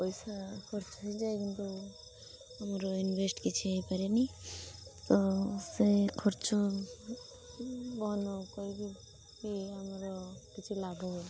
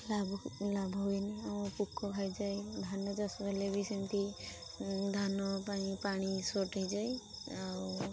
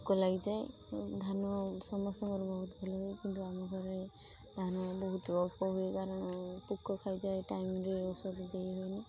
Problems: constant background noise